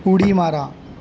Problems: none marked